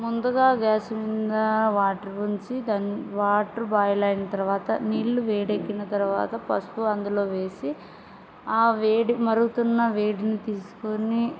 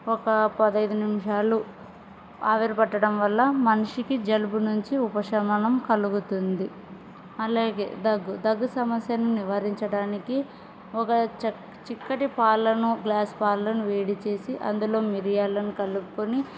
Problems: background sounds at intervals